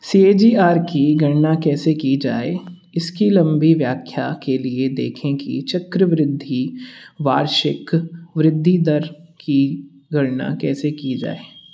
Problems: constant background noise